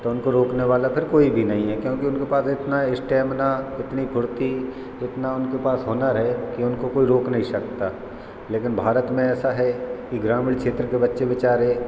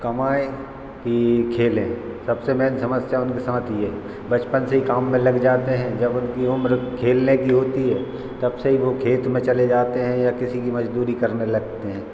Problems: none marked